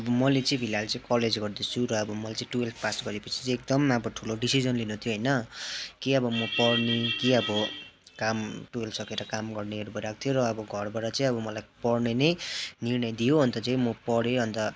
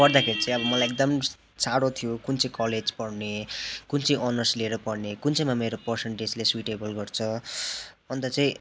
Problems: constant background noise